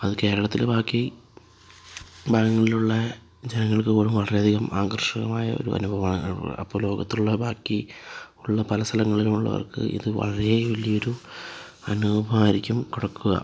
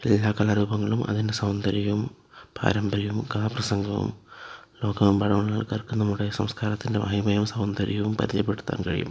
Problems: low volume